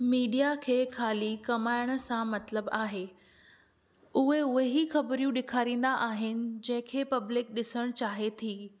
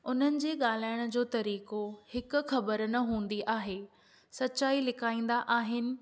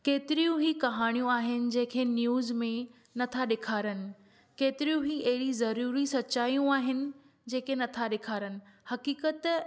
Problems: none marked